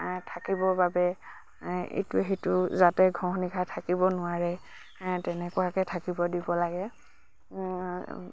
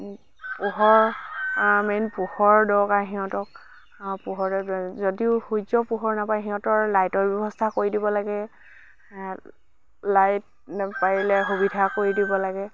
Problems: none marked